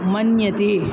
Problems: constant background noise